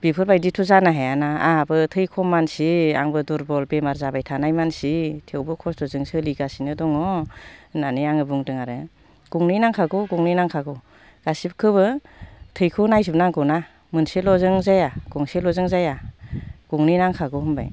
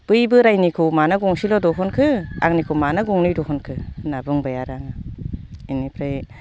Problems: low volume